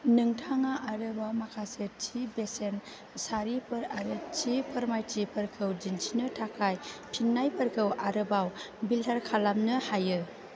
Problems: constant background noise